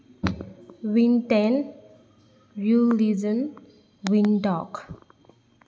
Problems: none marked